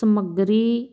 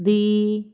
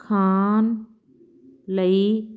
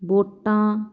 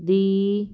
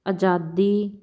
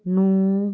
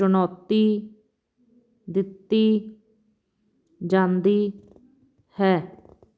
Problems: constant background noise